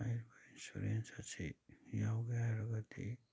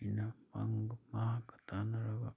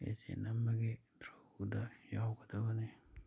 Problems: none marked